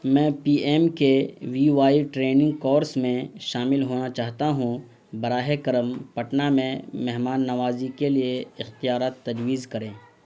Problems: constant background noise